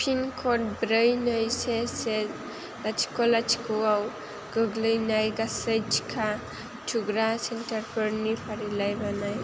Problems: constant background noise